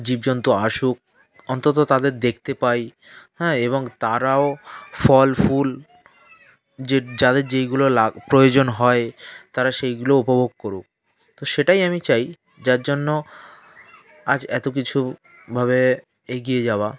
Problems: background sounds at intervals, continuous background conversations